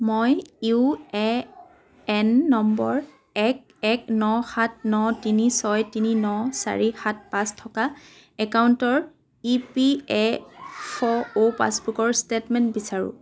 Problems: constant background noise